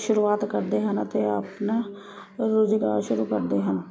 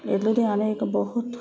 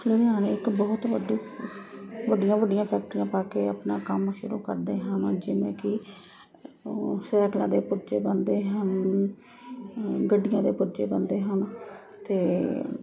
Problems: constant background noise